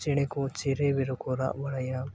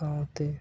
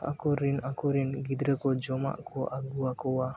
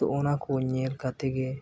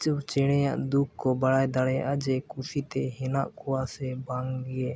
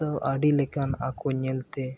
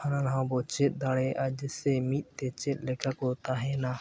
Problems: background sounds at intervals